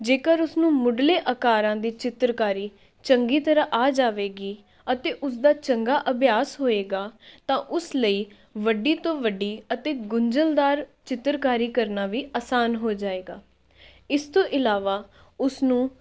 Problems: background sounds at intervals